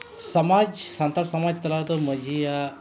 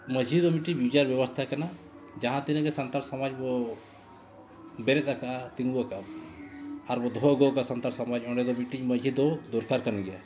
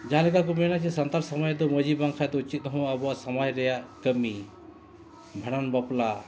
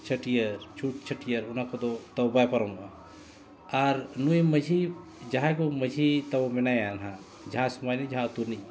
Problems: none marked